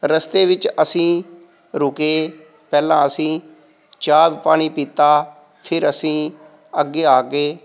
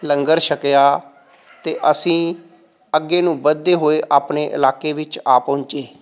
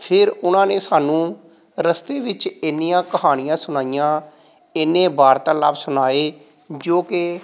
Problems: background sounds at intervals